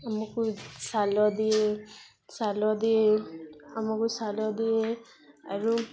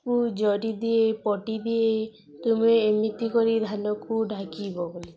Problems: none marked